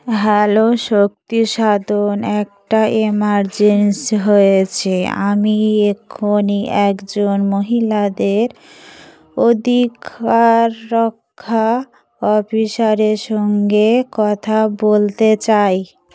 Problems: constant background noise, background conversations at intervals